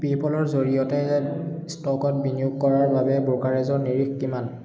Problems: none marked